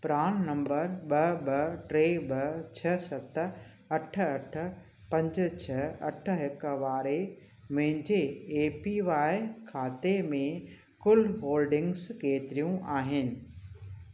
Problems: constant background noise